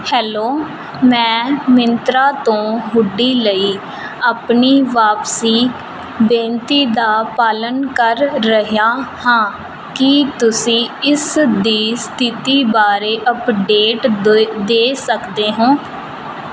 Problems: none marked